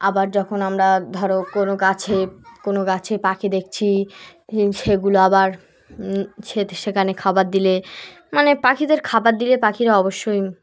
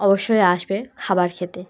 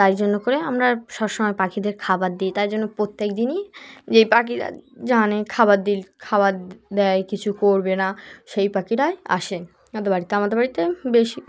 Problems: background sounds at intervals, background conversations at intervals